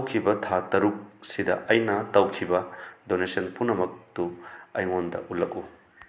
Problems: constant background noise